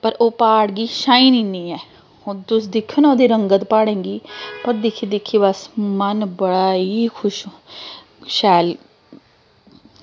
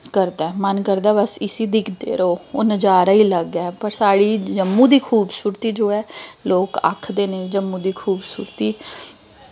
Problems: none marked